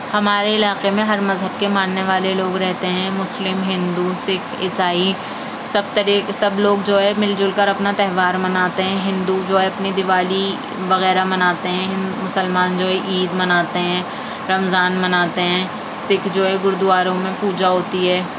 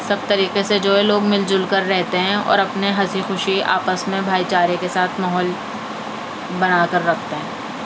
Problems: constant background noise